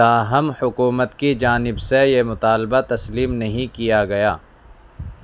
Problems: constant background noise